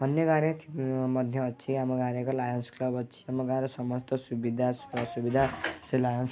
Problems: background sounds at intervals, low volume